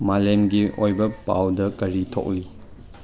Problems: none marked